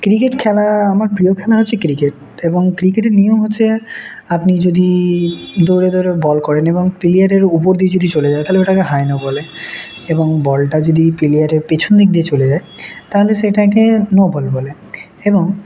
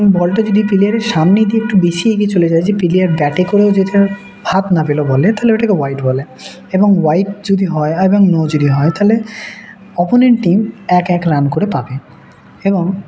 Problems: none marked